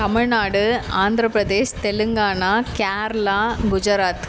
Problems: constant background noise